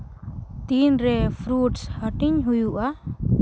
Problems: background sounds at intervals